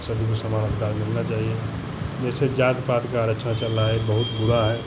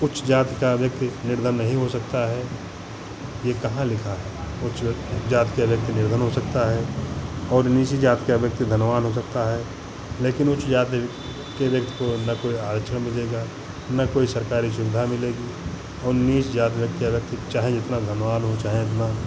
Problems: none marked